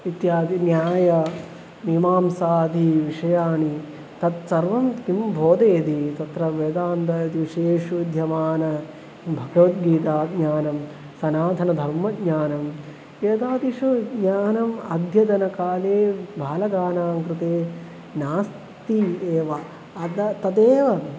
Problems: constant background noise